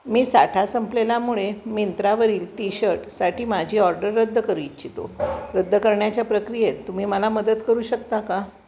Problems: constant background noise, background conversations at intervals